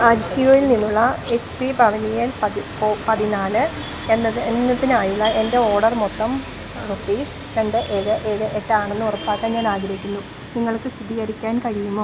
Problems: background sounds at intervals